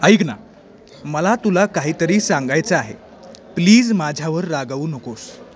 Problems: constant background noise, continuous background conversations